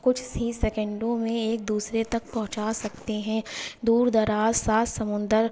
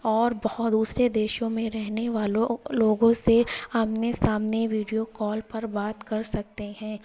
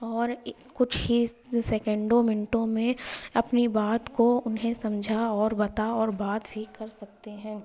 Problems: background sounds at intervals, low volume